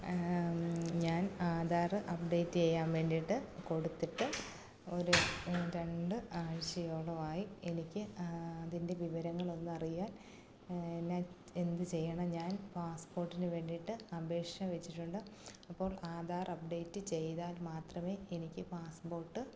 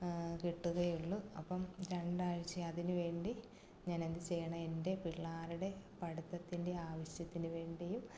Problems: low volume